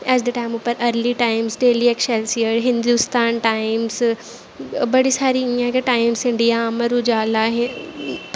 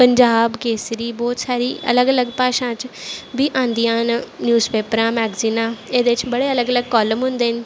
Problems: none marked